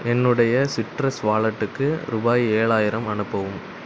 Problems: background sounds at intervals